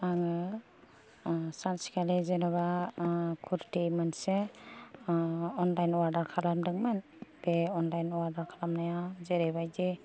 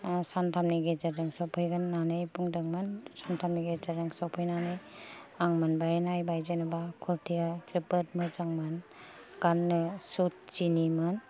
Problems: low volume